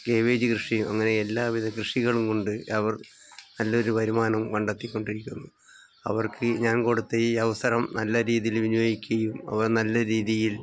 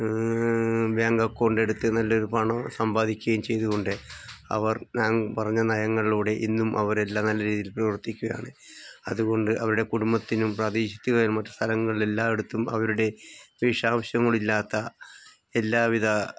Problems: background sounds at intervals